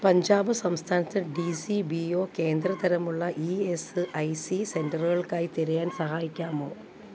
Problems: constant background noise